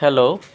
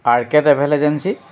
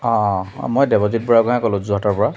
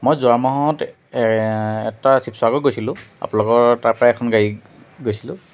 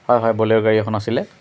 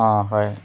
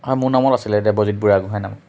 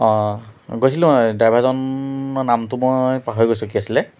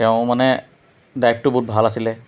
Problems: constant background noise